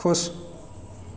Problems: constant background noise